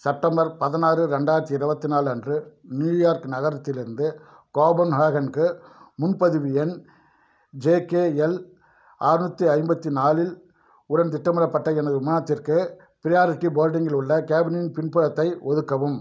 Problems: none marked